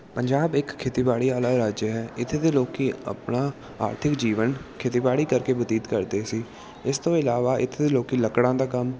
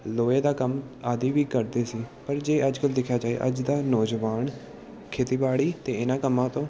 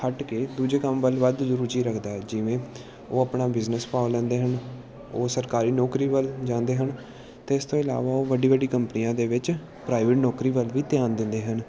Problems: background sounds at intervals